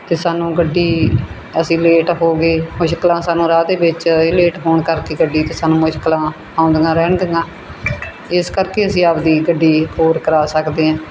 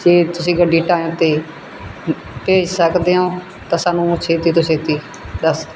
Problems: background sounds at intervals